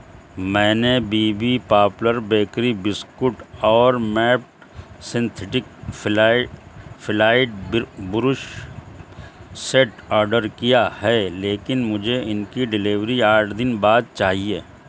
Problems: constant background noise